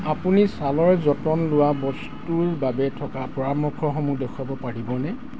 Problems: constant background noise